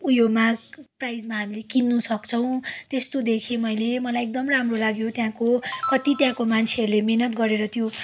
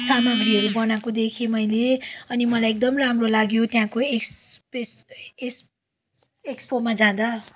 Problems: background sounds at intervals